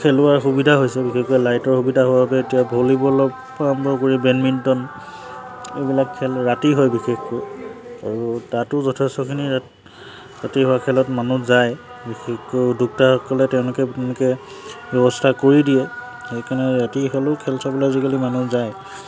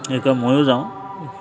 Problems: constant background noise